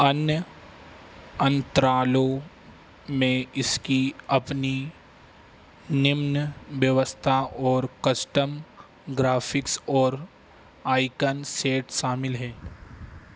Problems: none marked